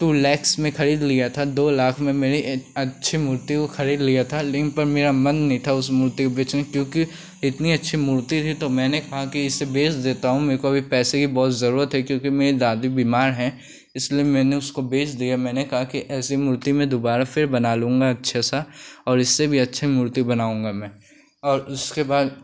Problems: none marked